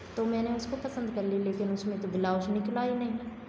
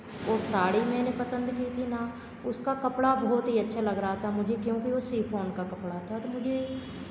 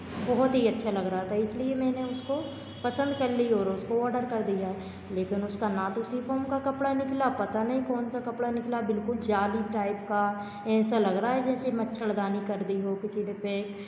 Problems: constant background noise, background conversations at intervals